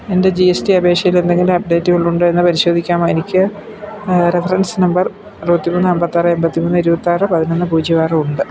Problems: constant background noise